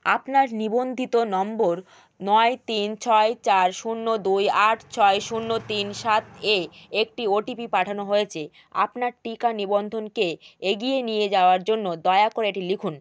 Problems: none marked